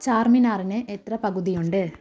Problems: low volume